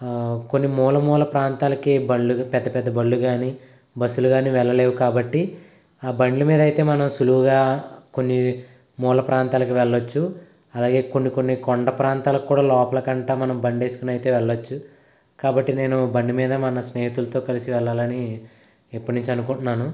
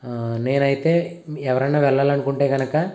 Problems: constant background noise